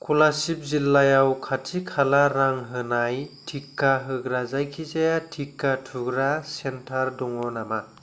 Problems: none marked